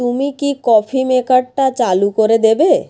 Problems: background sounds at intervals